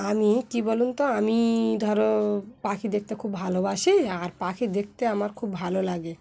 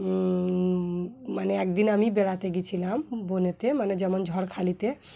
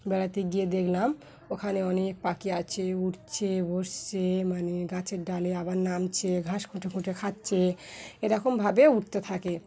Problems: continuous background conversations